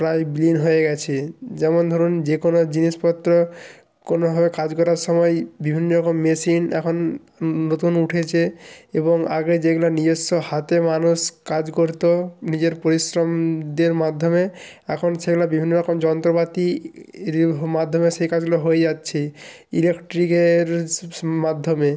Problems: none marked